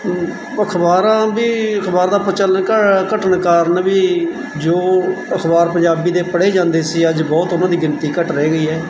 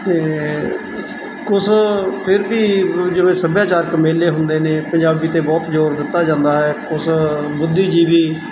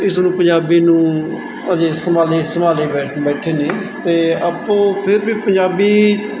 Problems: constant background noise, background conversations at intervals